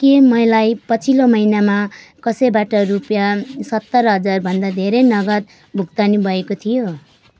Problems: constant background noise